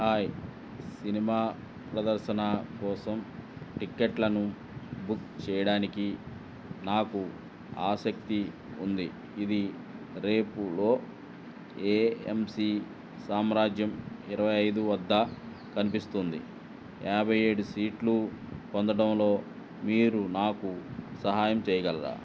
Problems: none marked